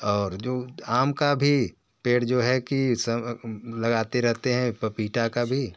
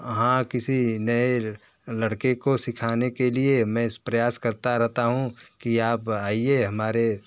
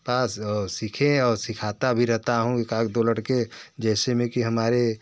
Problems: background conversations at intervals